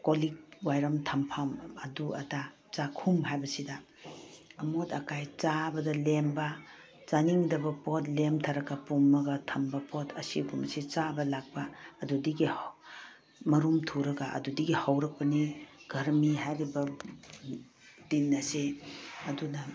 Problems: background sounds at intervals